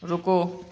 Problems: constant background noise